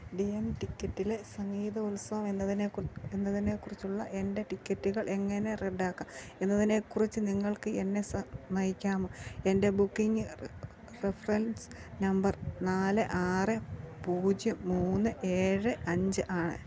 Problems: low volume